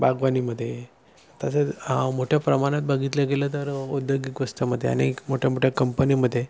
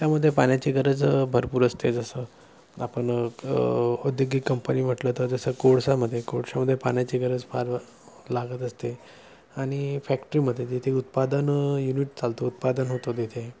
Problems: none marked